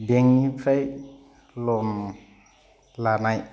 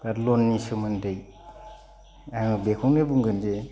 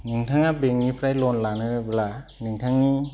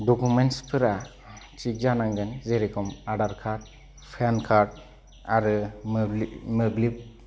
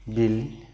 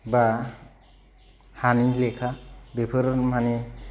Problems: none marked